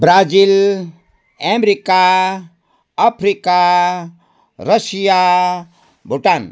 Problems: background sounds at intervals